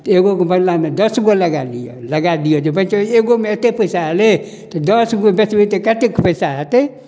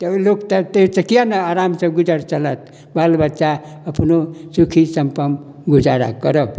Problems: none marked